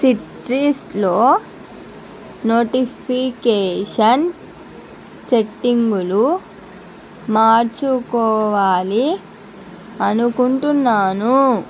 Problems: none marked